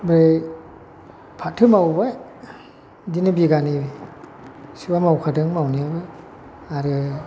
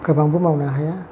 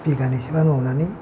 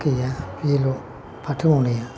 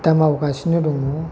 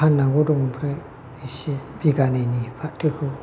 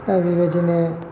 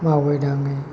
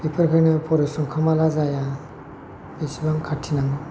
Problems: constant background noise